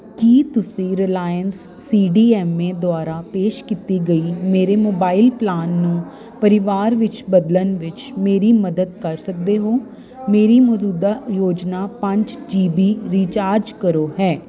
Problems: constant background noise